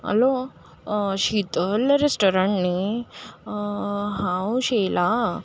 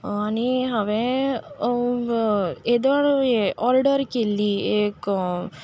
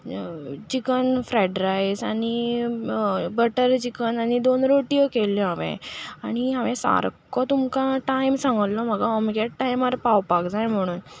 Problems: constant background noise